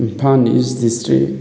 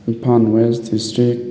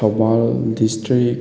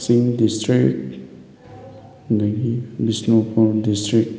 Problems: background conversations at intervals